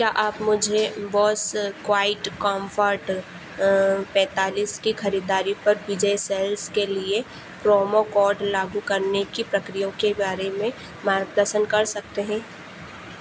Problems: constant background noise